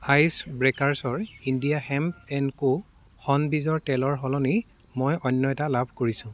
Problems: constant background noise, background conversations at intervals